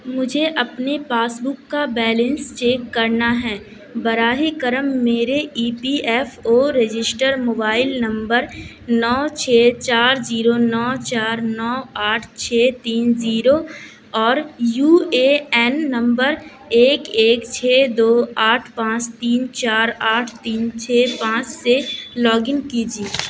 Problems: none marked